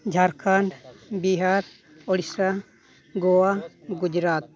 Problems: background conversations at intervals